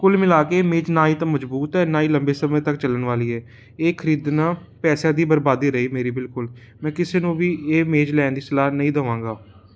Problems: constant background noise